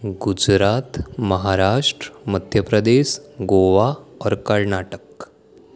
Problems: none marked